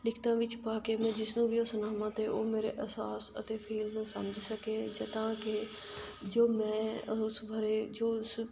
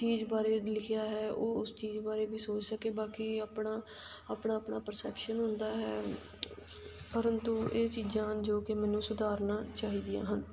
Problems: constant background noise